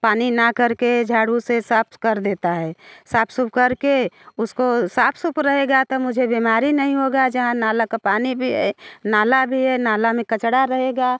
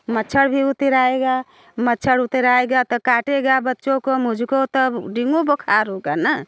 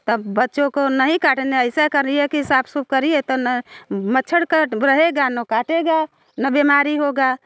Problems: constant background noise